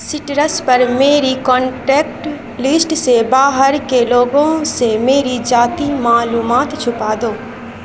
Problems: constant background noise